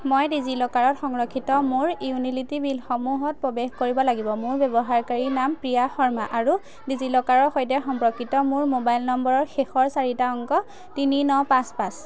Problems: none marked